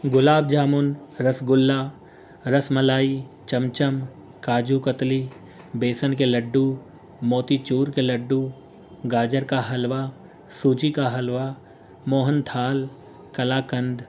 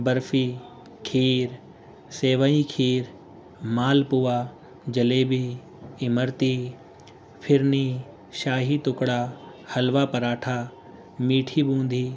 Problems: constant background noise